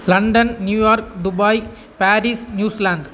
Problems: constant background noise